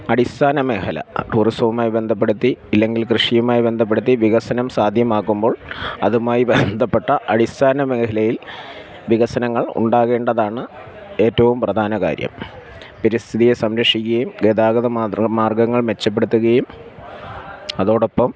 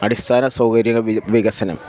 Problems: background sounds at intervals